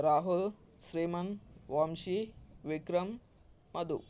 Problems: constant background noise